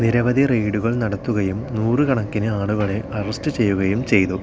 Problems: constant background noise